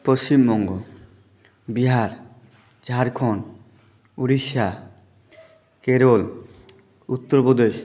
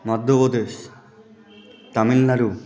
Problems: constant background noise, continuous background conversations